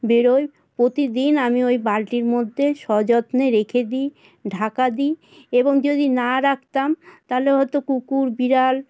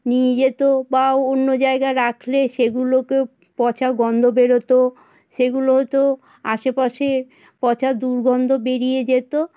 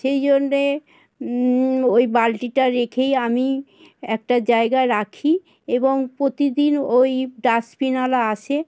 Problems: constant background noise